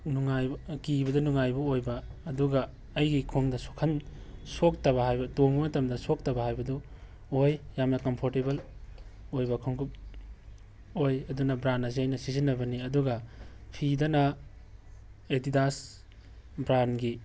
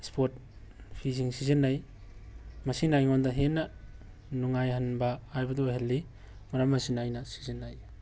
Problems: background sounds at intervals